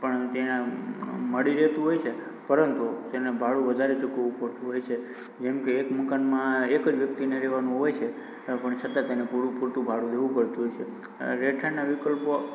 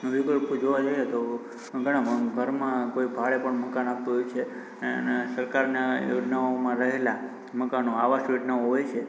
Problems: constant background noise